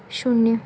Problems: none marked